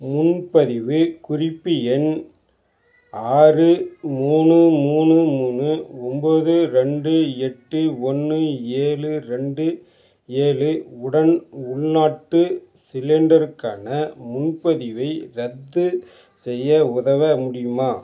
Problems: background sounds at intervals